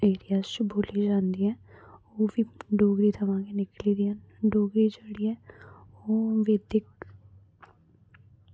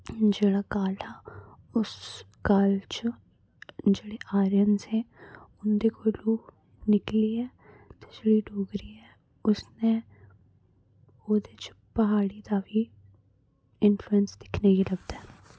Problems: none marked